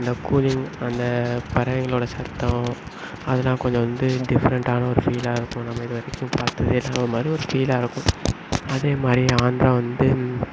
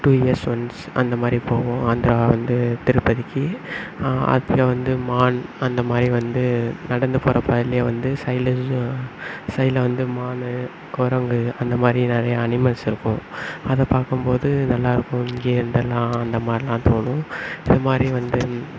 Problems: none marked